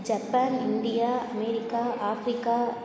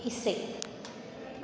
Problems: constant background noise